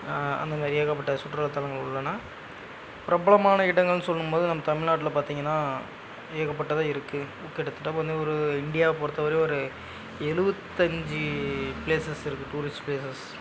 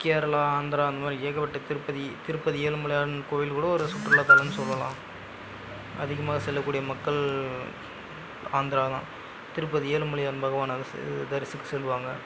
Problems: background sounds at intervals